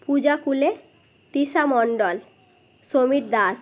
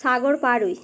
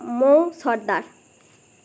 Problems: none marked